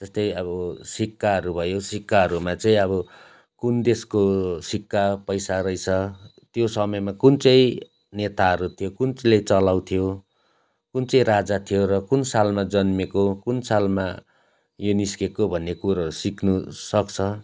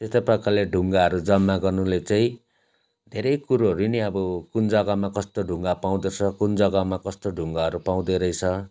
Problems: constant background noise